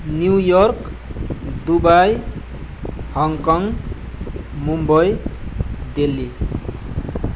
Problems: constant background noise